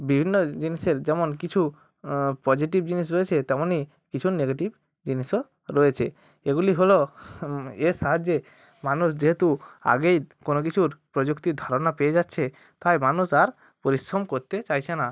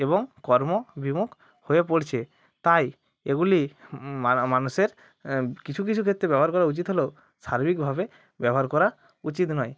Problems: constant background noise